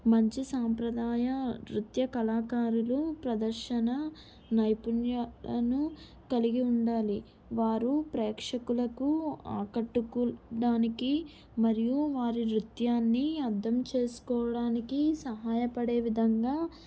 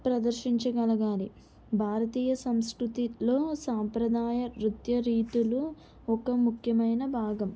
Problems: none marked